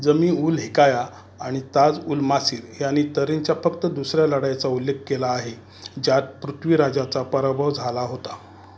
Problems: none marked